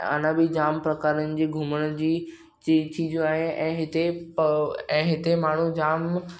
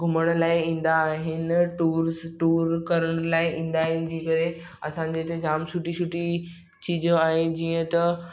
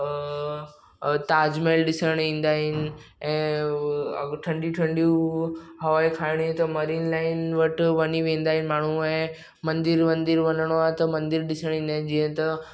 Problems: none marked